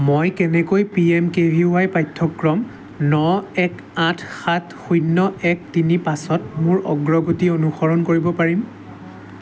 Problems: constant background noise